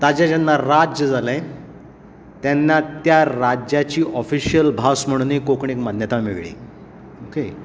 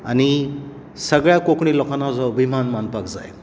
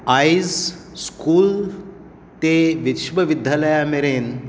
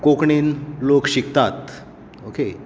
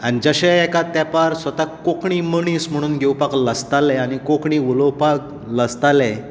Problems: none marked